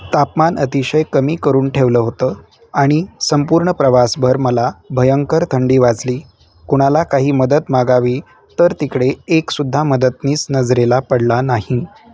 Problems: constant background noise, background conversations at intervals